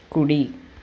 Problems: constant background noise